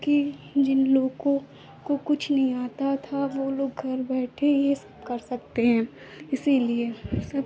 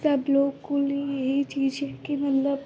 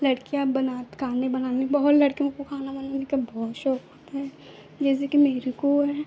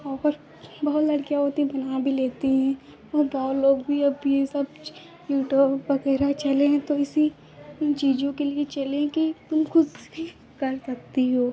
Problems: constant background noise